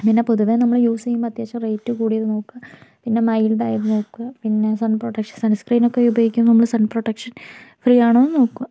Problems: background sounds at intervals